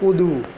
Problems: none marked